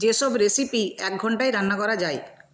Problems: none marked